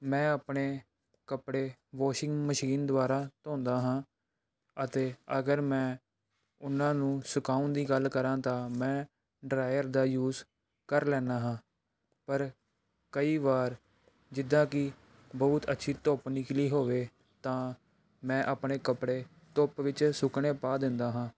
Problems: background sounds at intervals